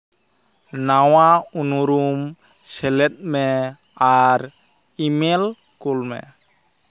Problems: none marked